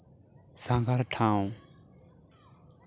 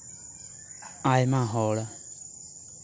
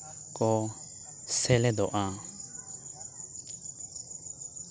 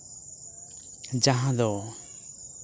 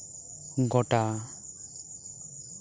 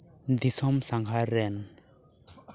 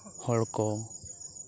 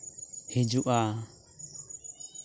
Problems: constant background noise